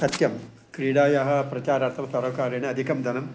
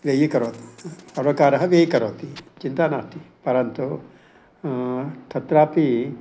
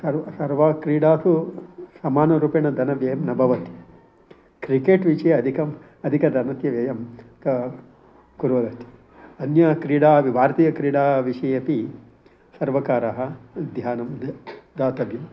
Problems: constant background noise